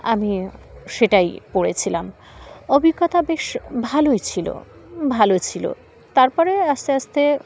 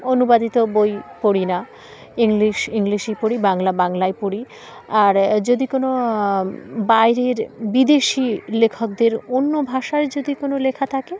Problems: constant background noise, background conversations at intervals